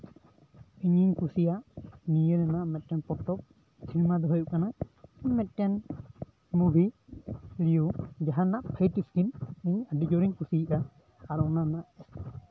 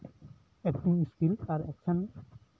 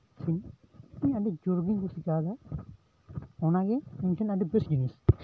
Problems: constant background noise, background conversations at intervals